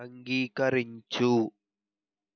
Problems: none marked